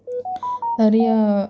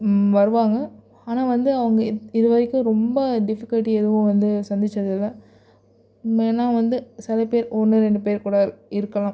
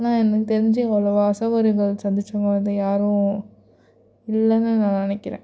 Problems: none marked